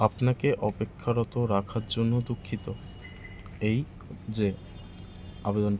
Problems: constant background noise